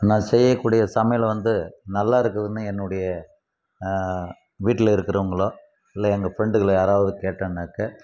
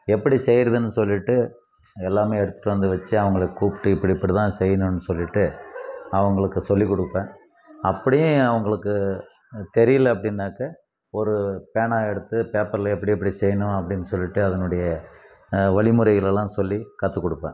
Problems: constant background noise